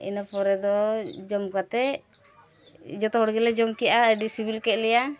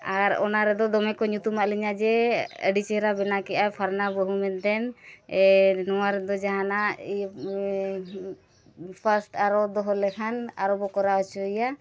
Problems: constant background noise